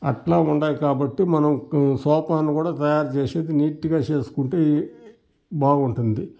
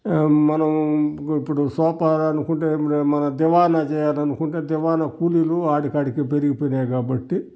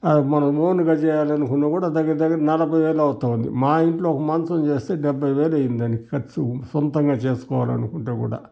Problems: none marked